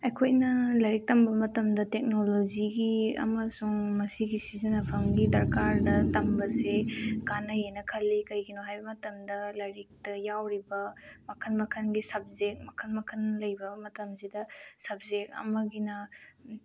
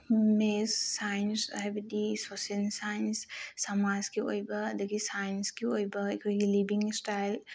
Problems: none marked